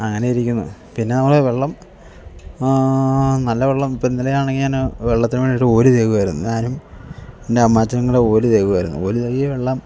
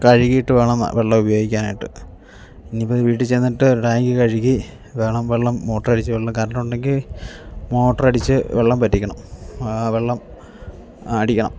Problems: background sounds at intervals